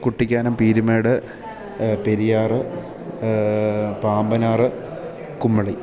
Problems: none marked